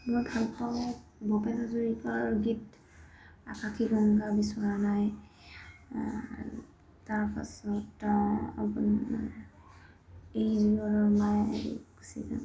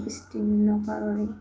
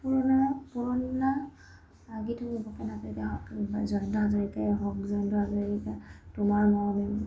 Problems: constant background noise